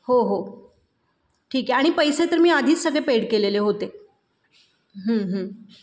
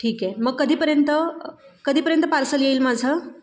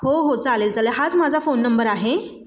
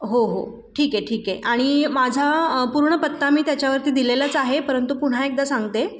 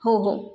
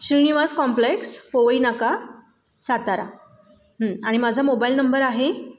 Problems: none marked